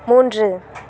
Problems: constant background noise